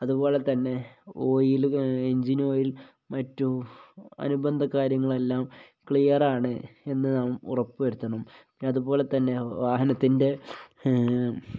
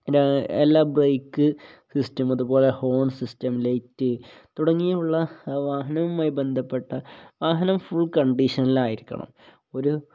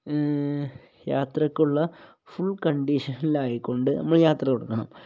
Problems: low volume